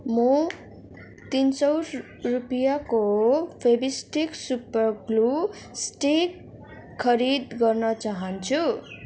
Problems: constant background noise, background conversations at intervals